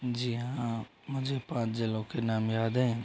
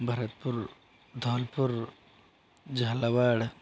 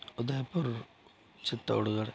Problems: none marked